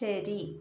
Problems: none marked